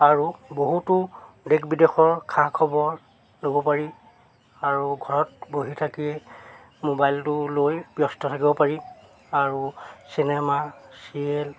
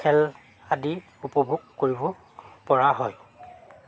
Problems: none marked